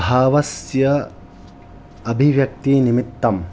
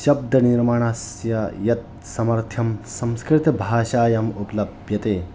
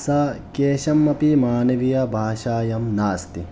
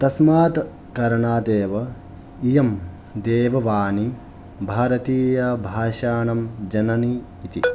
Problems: background sounds at intervals